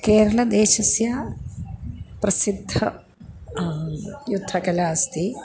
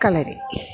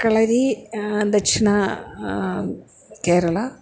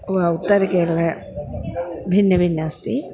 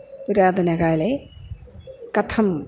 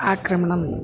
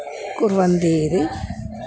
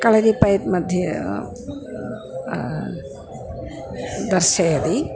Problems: none marked